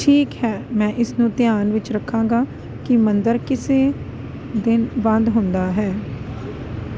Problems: constant background noise